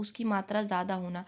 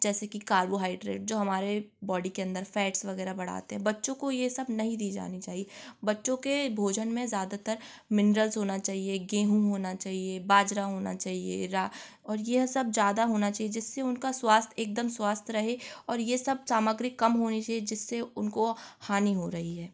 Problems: constant background noise